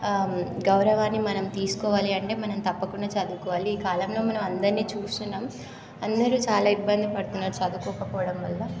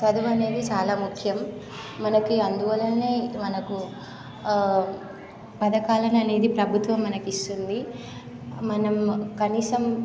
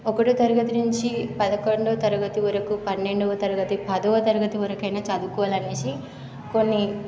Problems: constant background noise, background conversations at intervals